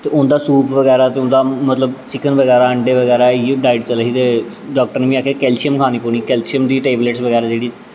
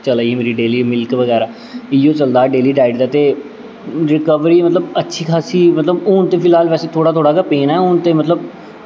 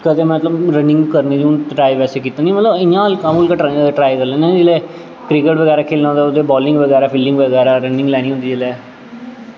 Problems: constant background noise, echo